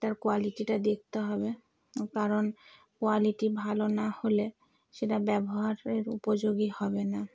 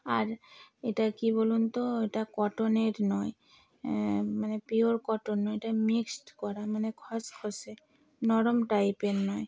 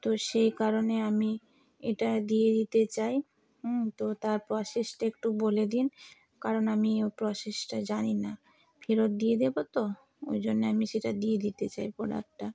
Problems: constant background noise